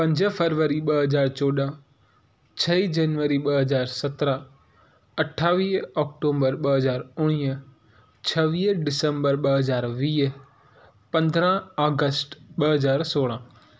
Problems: none marked